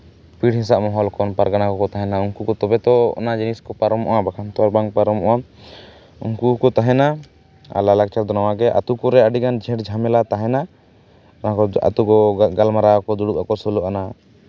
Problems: background sounds at intervals